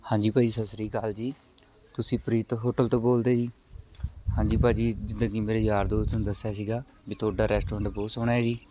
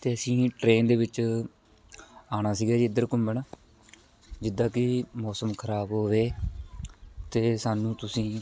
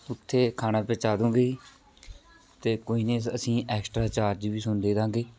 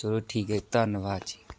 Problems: background sounds at intervals, continuous background conversations